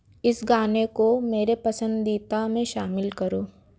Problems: background sounds at intervals